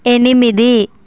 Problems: constant background noise